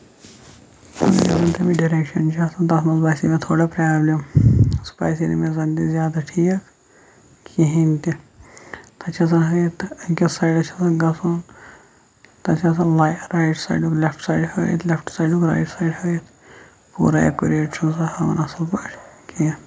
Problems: constant background noise, low volume